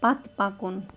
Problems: constant background noise